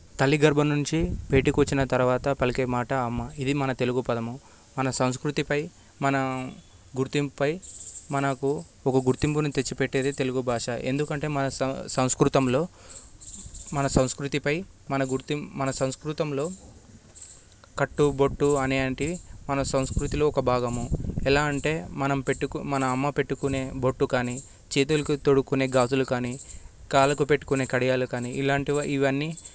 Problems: constant background noise